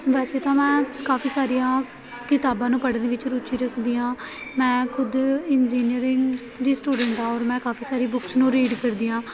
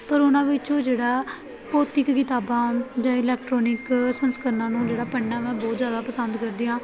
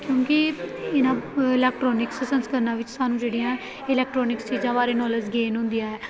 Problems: continuous background conversations